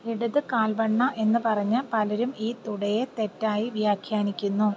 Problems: none marked